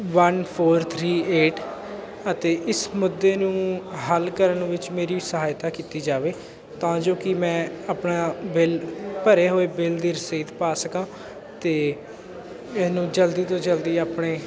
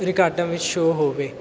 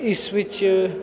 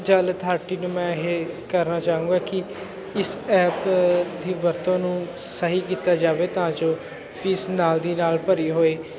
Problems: constant background noise